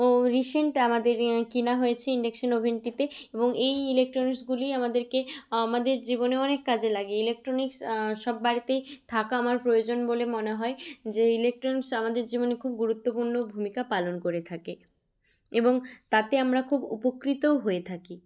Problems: background conversations at intervals